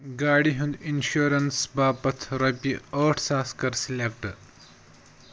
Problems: none marked